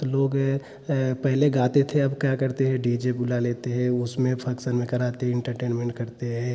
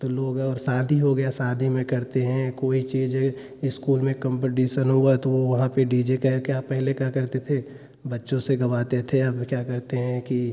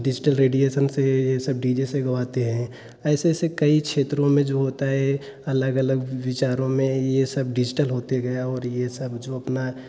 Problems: none marked